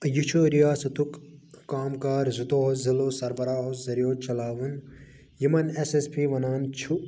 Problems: constant background noise